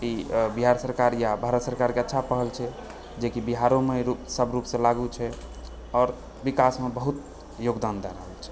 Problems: background sounds at intervals, background conversations at intervals